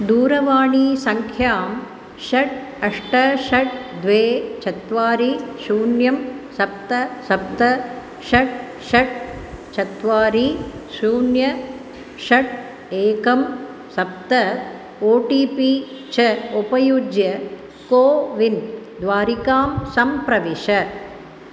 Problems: constant background noise